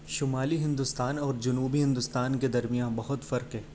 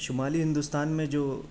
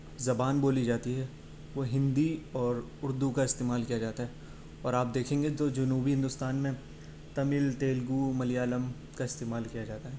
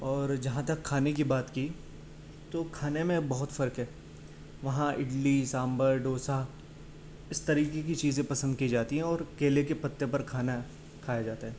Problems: none marked